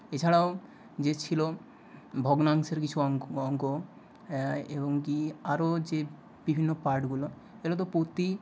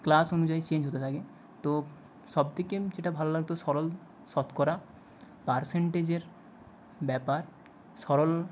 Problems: background sounds at intervals